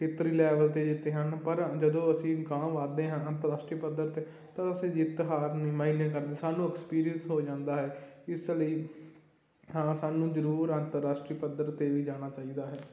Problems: constant background noise